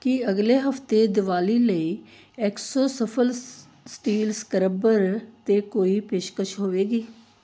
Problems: background sounds at intervals, background conversations at intervals